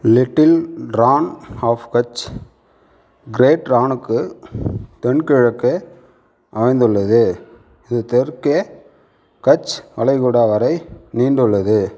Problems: none marked